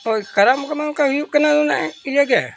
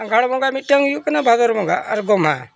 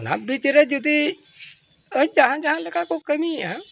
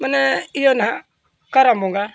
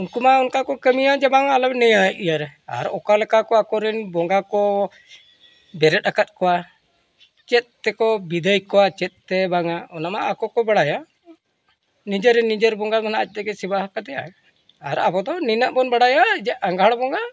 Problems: background sounds at intervals